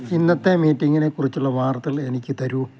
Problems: none marked